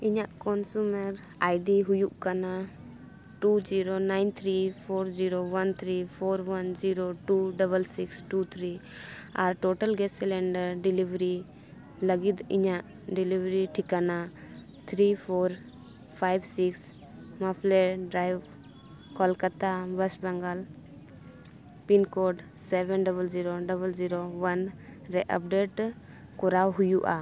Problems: none marked